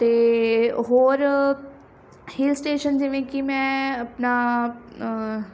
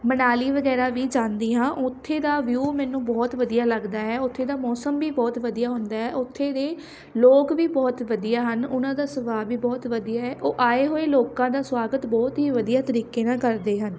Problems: none marked